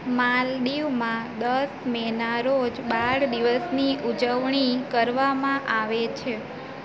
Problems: constant background noise